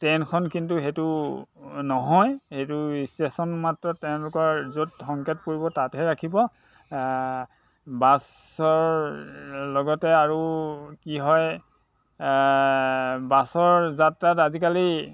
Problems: constant background noise